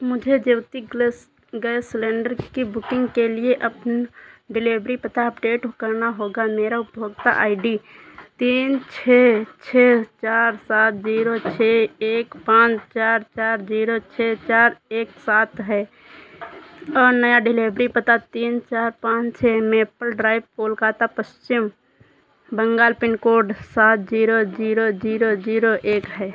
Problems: none marked